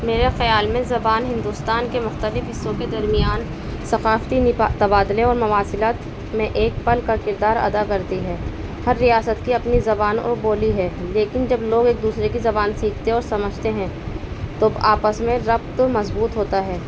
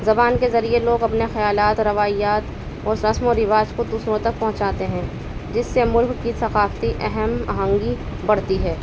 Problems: constant background noise